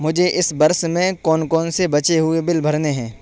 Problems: constant background noise